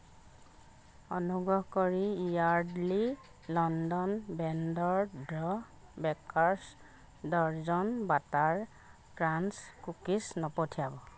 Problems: none marked